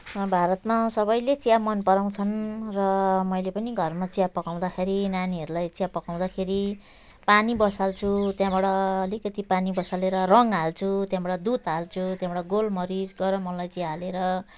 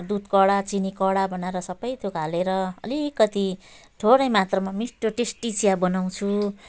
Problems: background sounds at intervals, background conversations at intervals